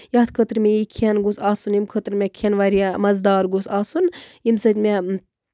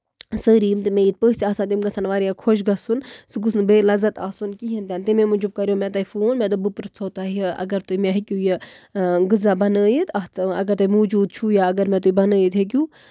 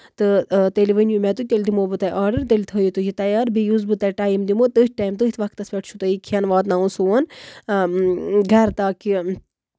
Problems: none marked